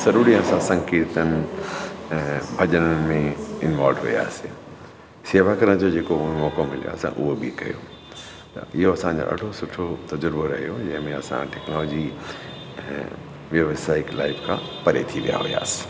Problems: constant background noise